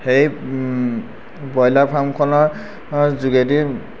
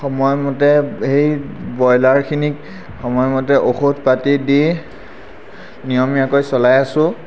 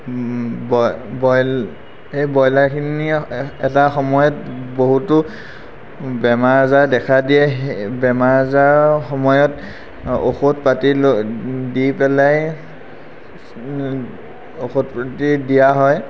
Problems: constant background noise